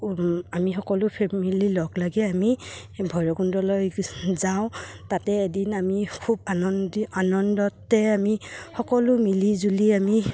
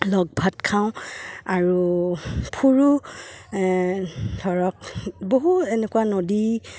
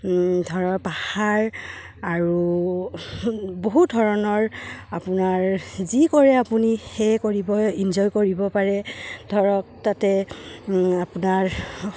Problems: background sounds at intervals